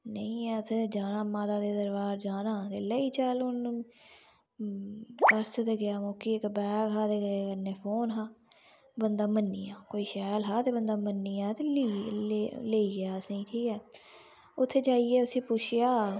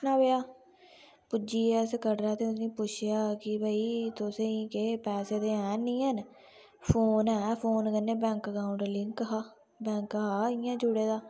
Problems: none marked